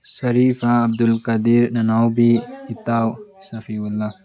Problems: background sounds at intervals, background conversations at intervals